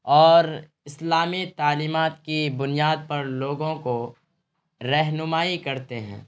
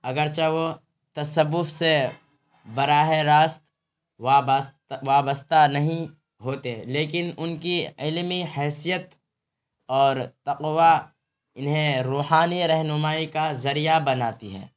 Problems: constant background noise